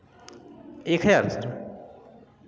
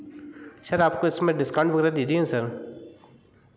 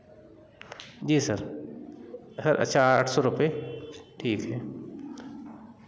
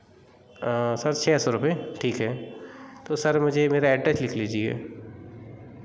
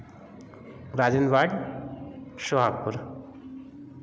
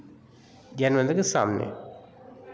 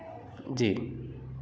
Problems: background sounds at intervals